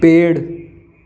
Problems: constant background noise